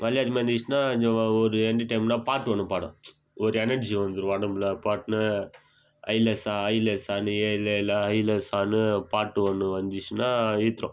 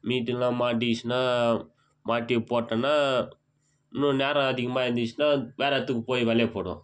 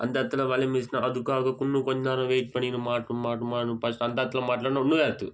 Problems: background sounds at intervals